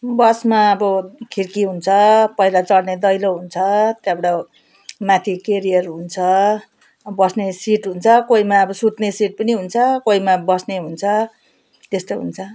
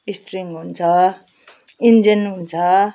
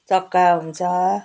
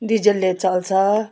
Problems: constant background noise